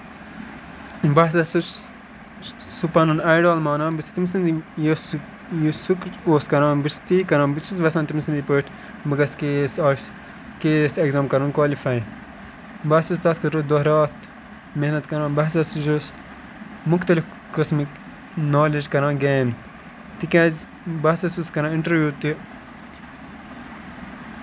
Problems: constant background noise